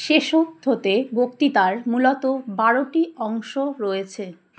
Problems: background sounds at intervals